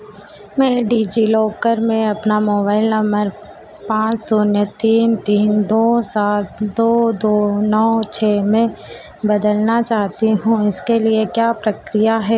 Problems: constant background noise